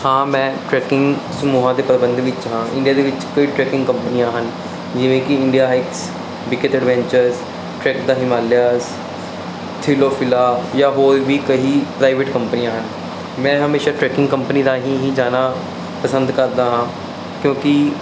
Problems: constant background noise